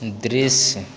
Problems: none marked